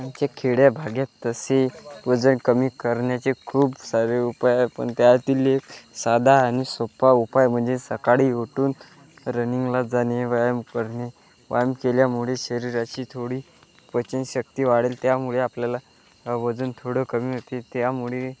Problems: constant background noise